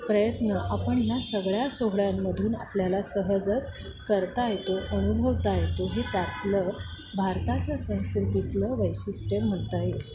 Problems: none marked